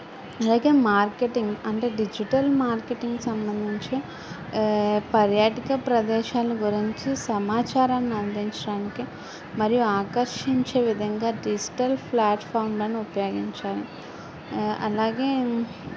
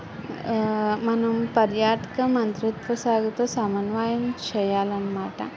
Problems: continuous background conversations